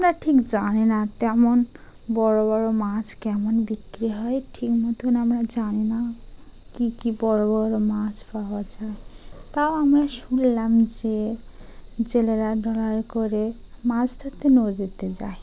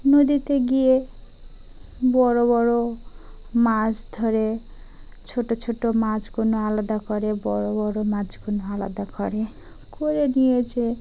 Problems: background sounds at intervals